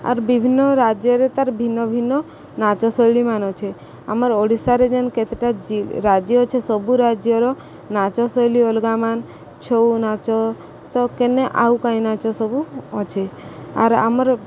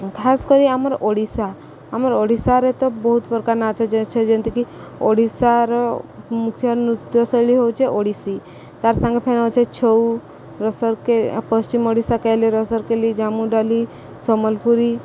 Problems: constant background noise